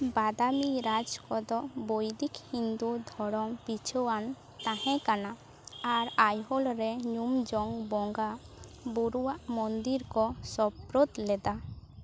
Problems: background sounds at intervals, background conversations at intervals